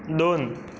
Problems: constant background noise